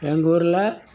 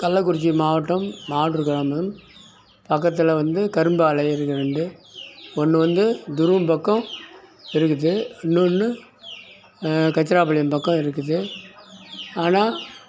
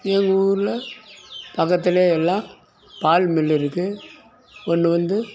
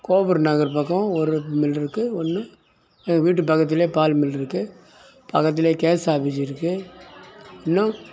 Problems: none marked